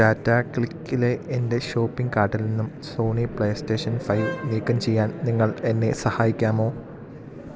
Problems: background sounds at intervals